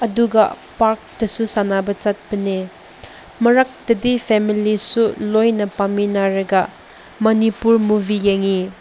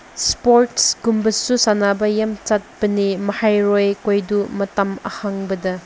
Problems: constant background noise